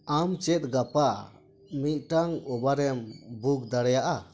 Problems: none marked